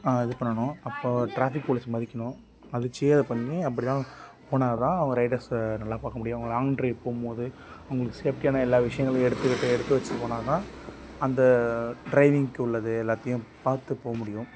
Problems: background sounds at intervals